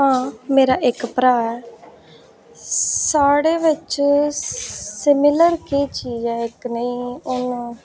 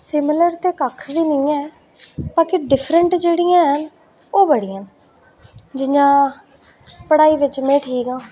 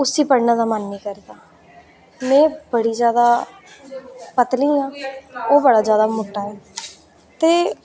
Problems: none marked